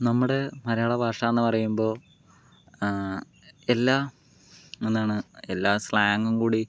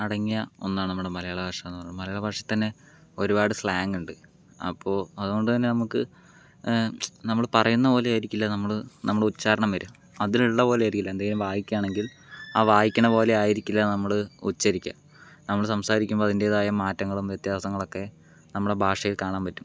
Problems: none marked